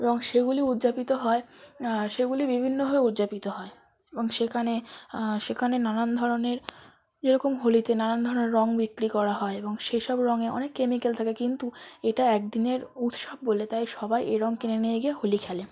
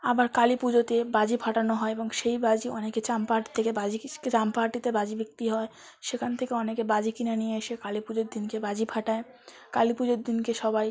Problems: background sounds at intervals, background conversations at intervals